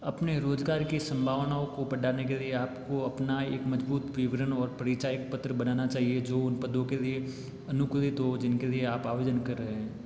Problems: constant background noise, echo